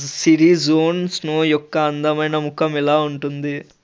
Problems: constant background noise